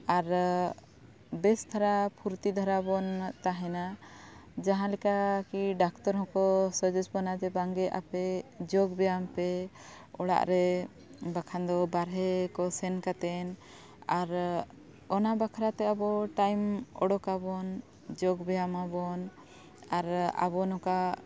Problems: none marked